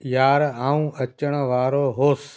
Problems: constant background noise